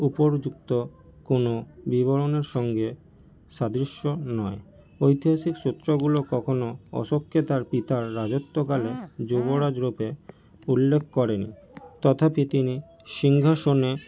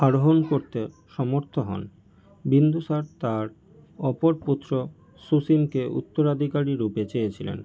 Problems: none marked